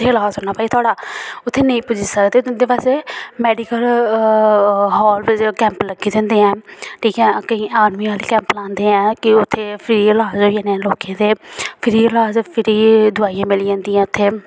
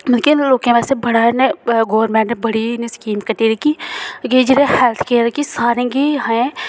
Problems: none marked